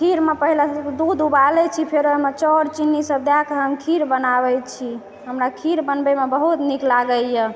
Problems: background sounds at intervals, background conversations at intervals